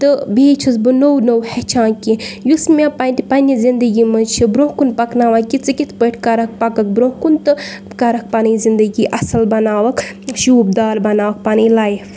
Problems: none marked